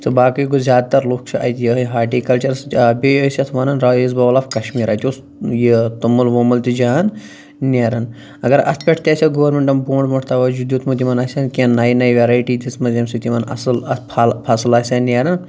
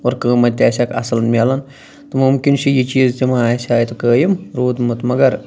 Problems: none marked